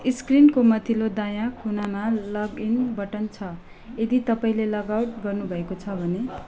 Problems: background sounds at intervals